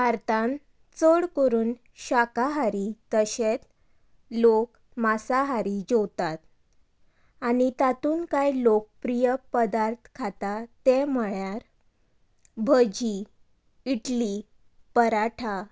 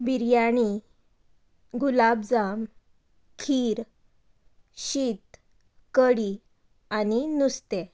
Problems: background conversations at intervals